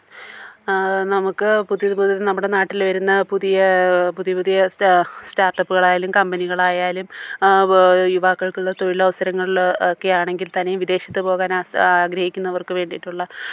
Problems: low volume